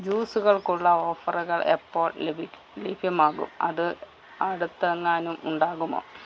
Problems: low volume